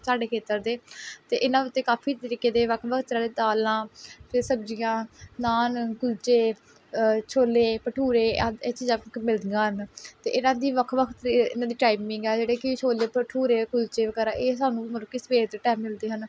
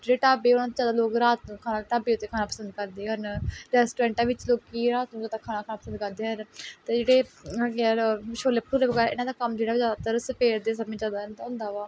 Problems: background sounds at intervals